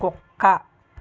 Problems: constant background noise